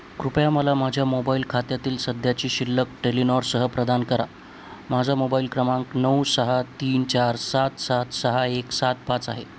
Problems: constant background noise